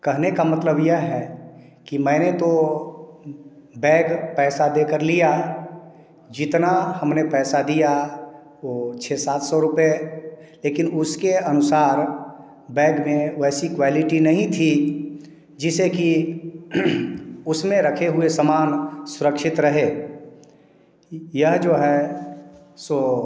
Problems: echo